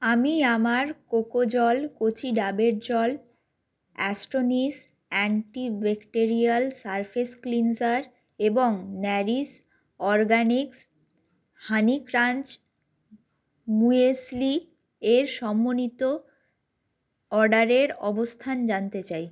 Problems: none marked